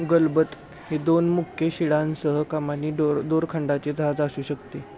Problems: none marked